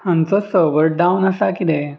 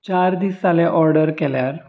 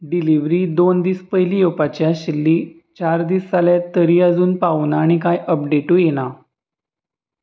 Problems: background conversations at intervals